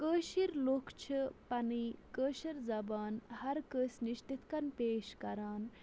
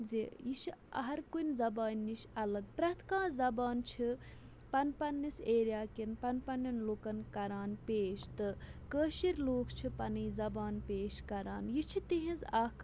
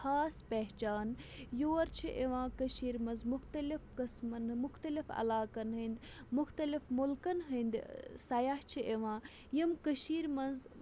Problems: background sounds at intervals